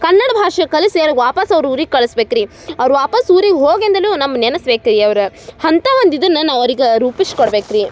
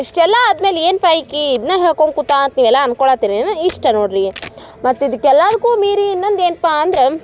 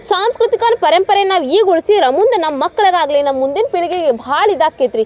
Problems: none marked